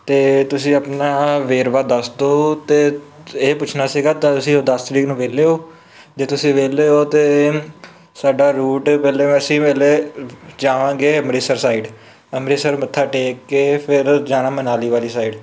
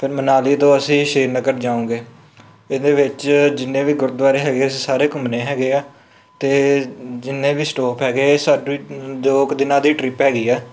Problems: none marked